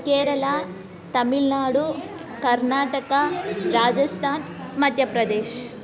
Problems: background conversations at intervals